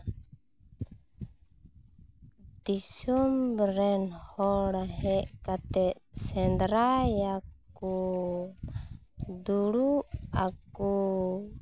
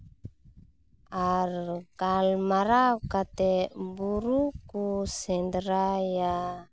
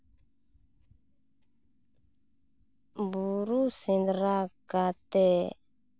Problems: background sounds at intervals